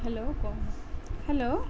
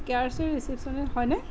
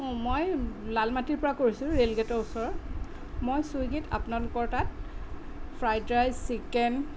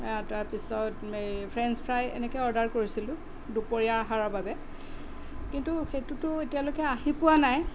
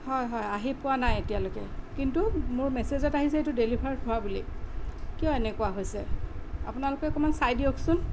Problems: none marked